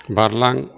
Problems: none marked